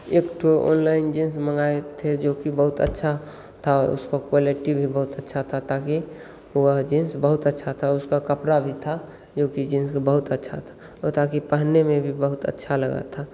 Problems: constant background noise, echo